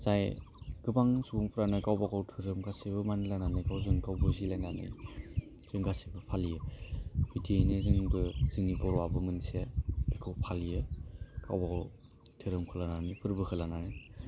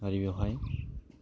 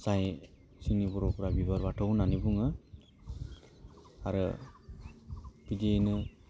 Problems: low volume